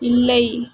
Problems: none marked